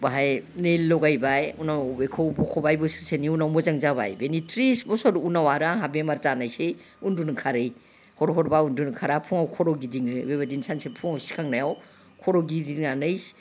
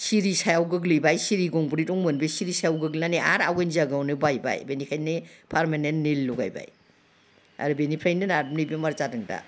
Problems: background sounds at intervals